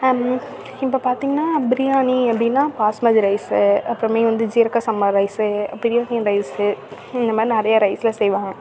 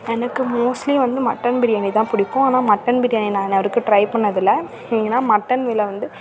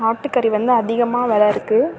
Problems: constant background noise, background conversations at intervals